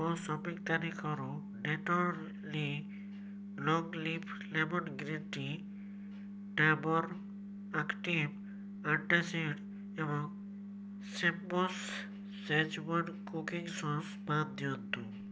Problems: none marked